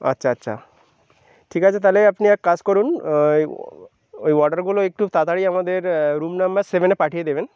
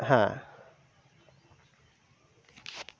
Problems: background sounds at intervals